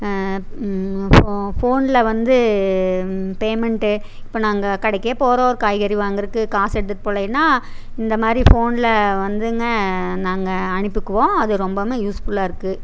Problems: constant background noise